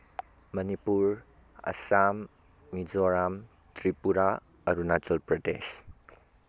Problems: constant background noise